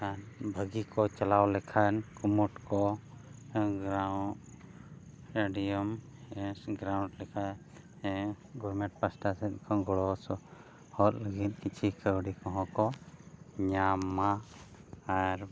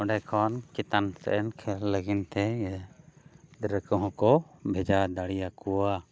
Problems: background sounds at intervals